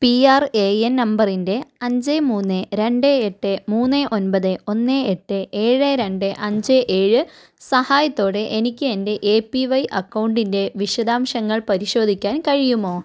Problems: none marked